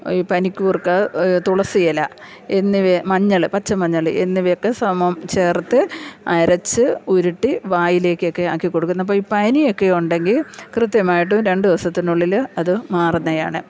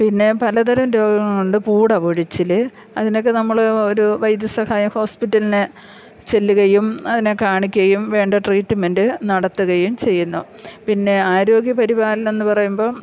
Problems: low volume